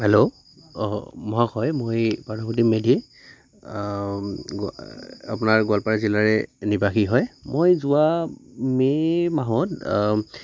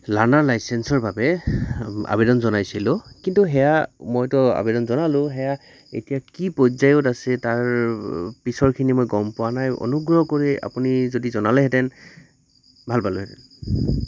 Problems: constant background noise